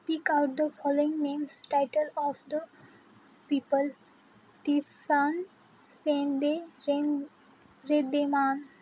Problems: none marked